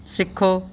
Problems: background conversations at intervals